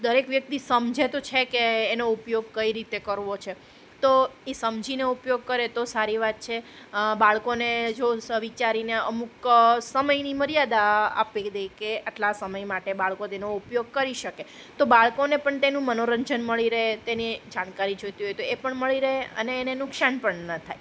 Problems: constant background noise